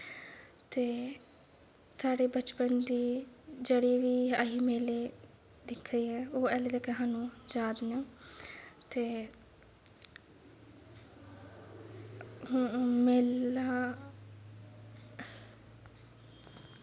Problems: background sounds at intervals, low volume